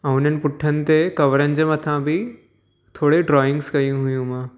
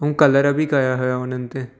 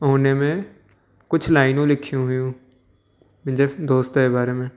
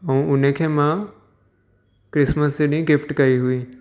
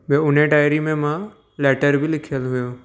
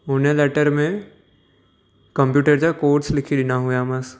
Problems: echo